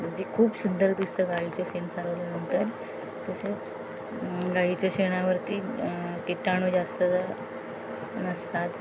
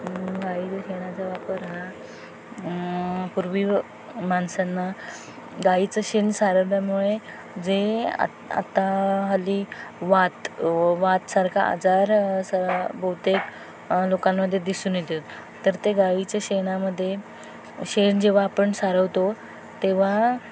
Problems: constant background noise, background conversations at intervals